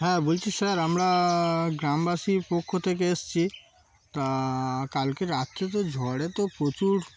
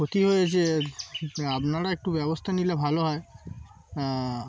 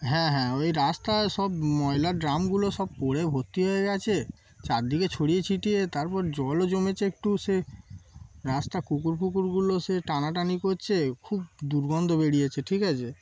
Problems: constant background noise